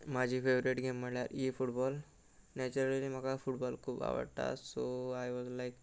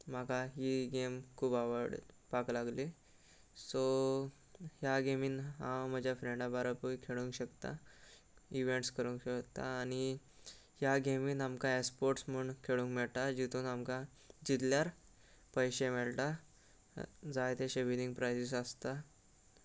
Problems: constant background noise